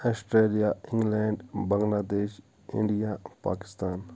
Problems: none marked